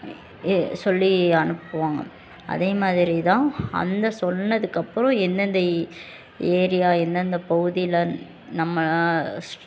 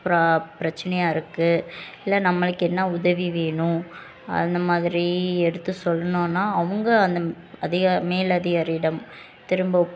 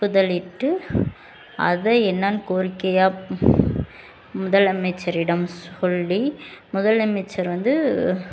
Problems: constant background noise, continuous background conversations